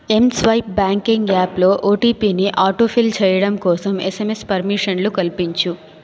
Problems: continuous background conversations